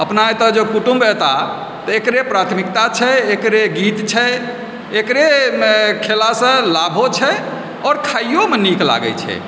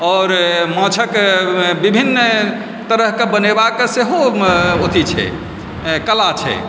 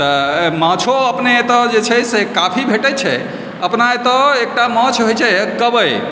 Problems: background sounds at intervals